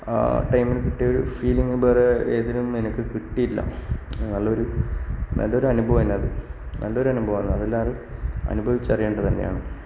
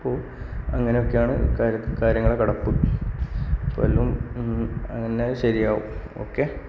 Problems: background sounds at intervals, low volume